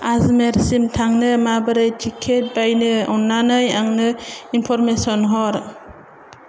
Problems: none marked